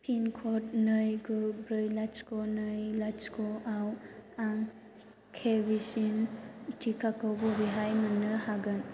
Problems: low volume